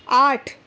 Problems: constant background noise